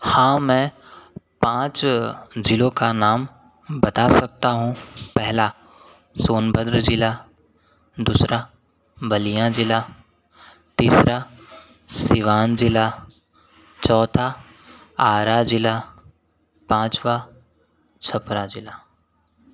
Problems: none marked